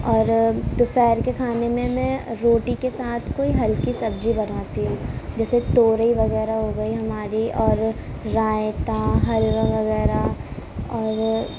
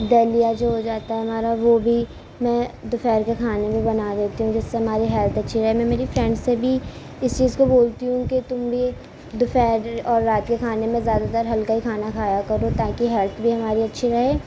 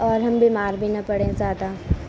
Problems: constant background noise